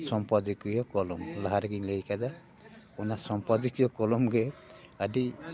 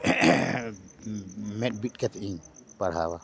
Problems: constant background noise, continuous background conversations